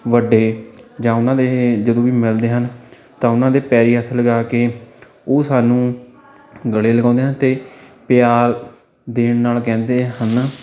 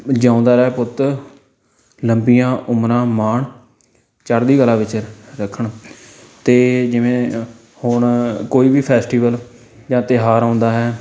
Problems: continuous background conversations